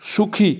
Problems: none marked